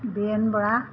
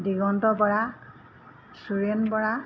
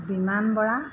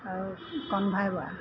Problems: background sounds at intervals